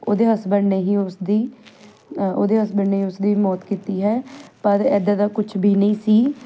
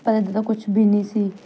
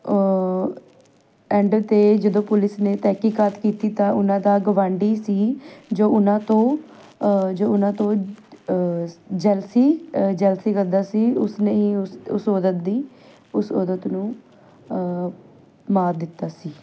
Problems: background sounds at intervals